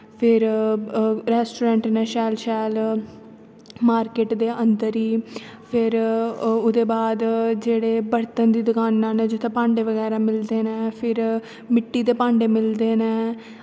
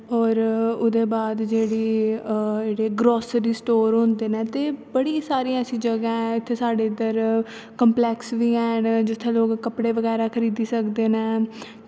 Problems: constant background noise